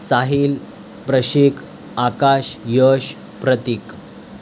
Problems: constant background noise